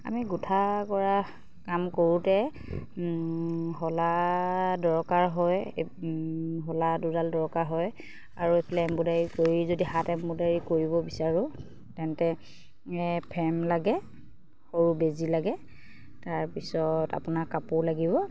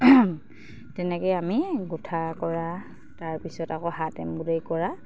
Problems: none marked